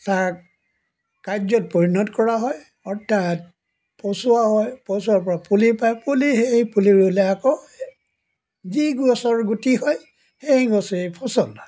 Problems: background sounds at intervals